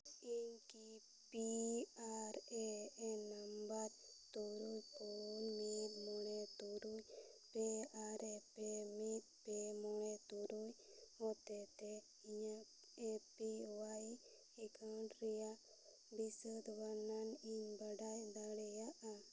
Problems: low volume